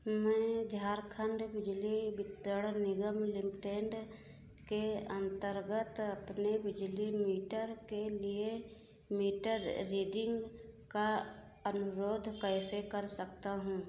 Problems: none marked